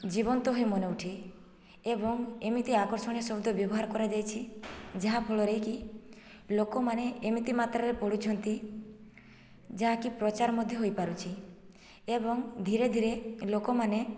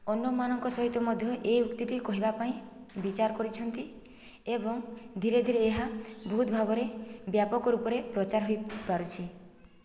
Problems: background sounds at intervals, low volume